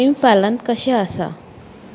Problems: background sounds at intervals